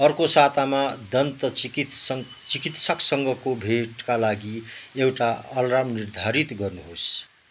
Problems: none marked